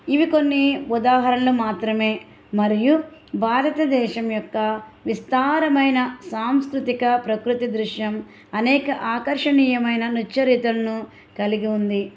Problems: background sounds at intervals